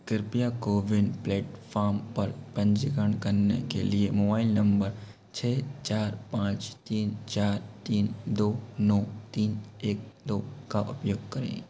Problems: constant background noise